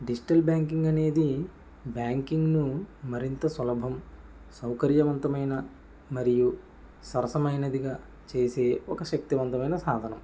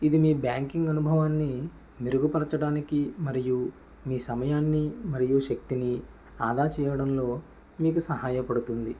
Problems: none marked